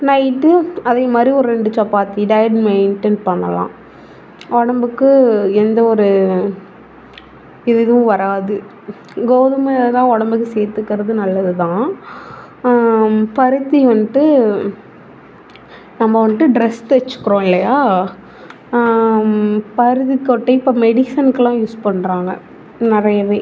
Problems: background sounds at intervals